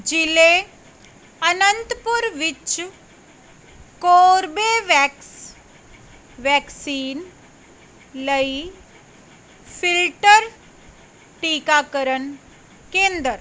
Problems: none marked